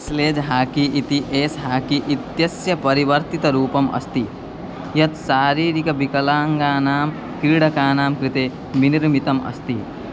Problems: none marked